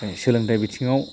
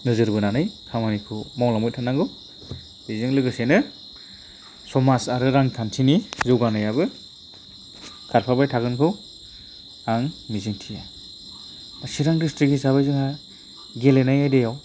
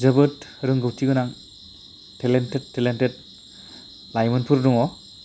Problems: constant background noise